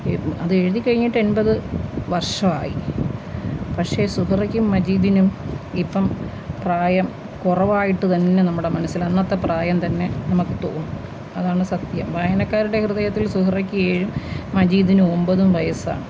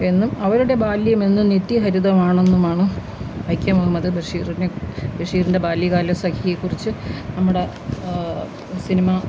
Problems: constant background noise